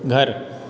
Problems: constant background noise